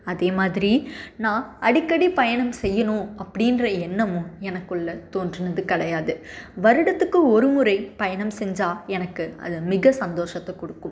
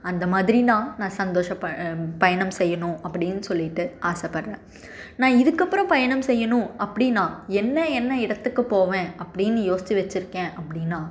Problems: none marked